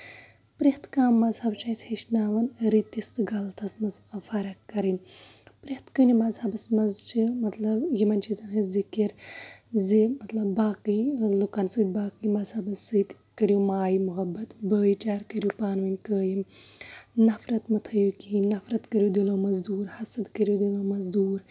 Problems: constant background noise